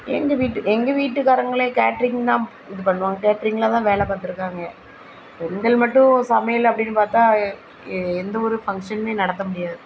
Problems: constant background noise